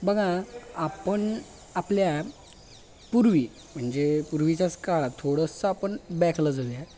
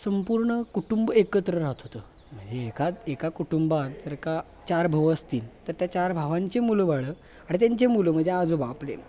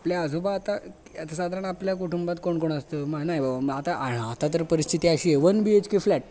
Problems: none marked